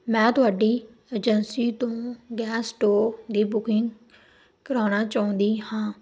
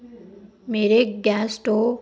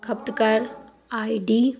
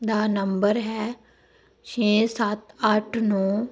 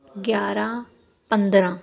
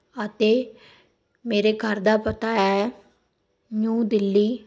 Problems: background sounds at intervals